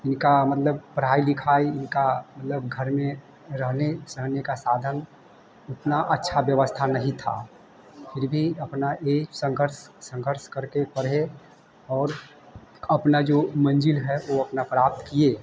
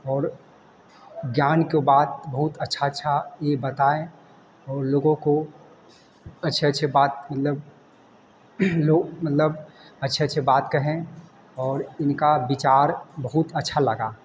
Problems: none marked